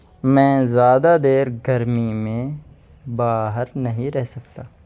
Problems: constant background noise